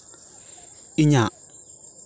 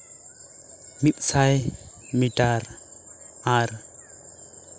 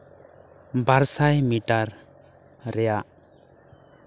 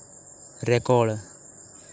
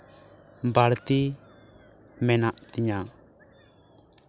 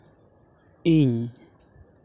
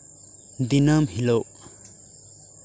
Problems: constant background noise, continuous background conversations